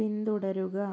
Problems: low volume